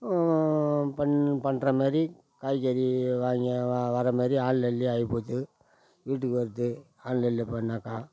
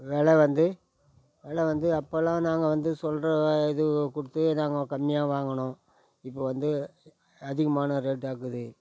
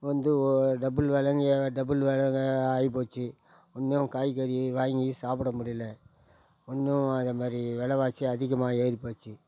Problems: none marked